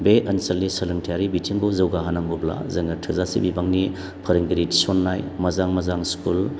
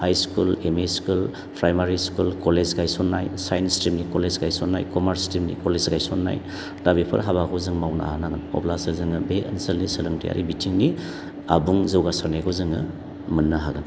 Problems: constant background noise